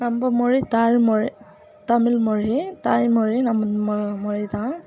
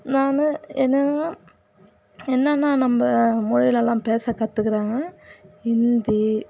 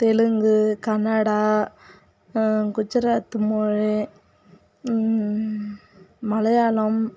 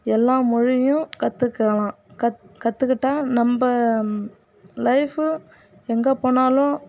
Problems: background sounds at intervals, background conversations at intervals